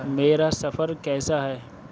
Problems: none marked